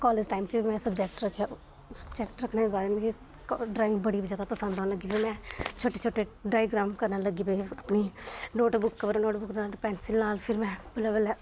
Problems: constant background noise